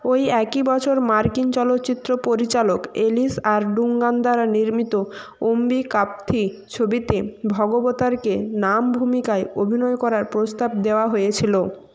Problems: background sounds at intervals